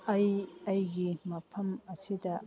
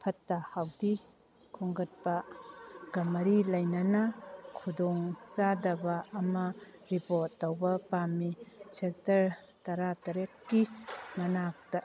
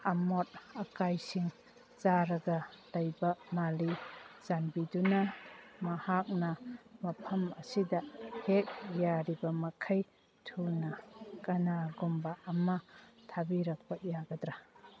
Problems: background sounds at intervals